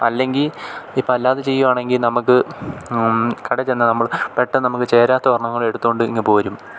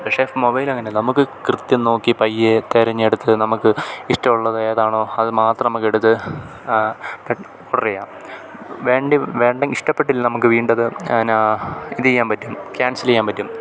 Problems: background sounds at intervals